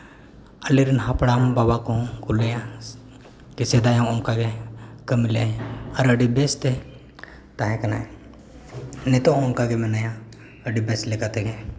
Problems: constant background noise